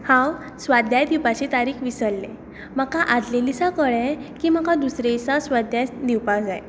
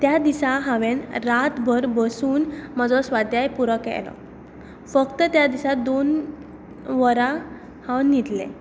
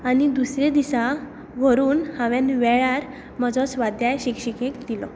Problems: constant background noise